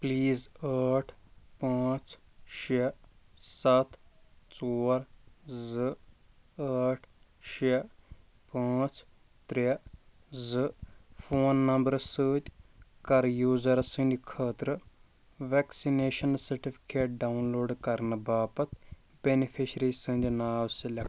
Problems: background sounds at intervals